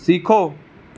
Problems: none marked